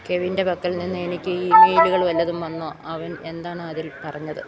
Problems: background sounds at intervals